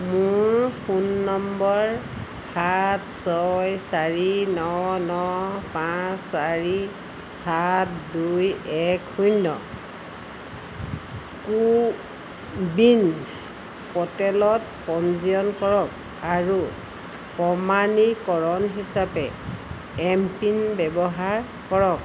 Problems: constant background noise